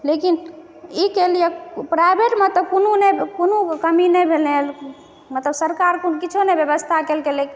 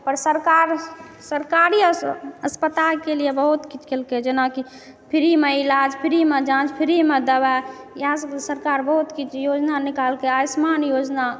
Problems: echo